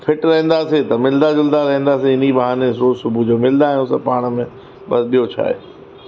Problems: constant background noise, echo